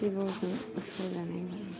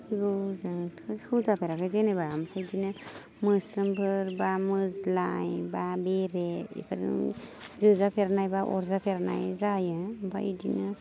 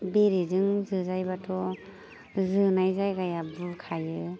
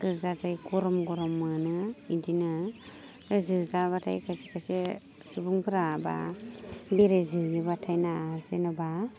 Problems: none marked